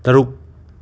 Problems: none marked